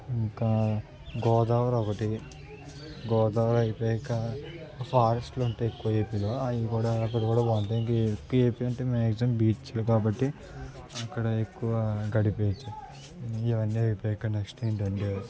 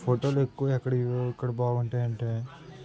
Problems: constant background noise, background conversations at intervals